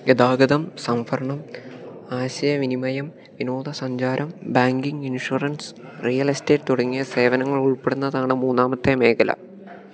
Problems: none marked